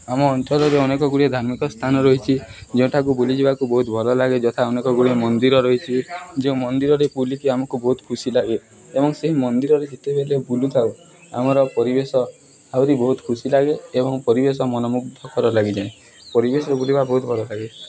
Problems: background sounds at intervals, background conversations at intervals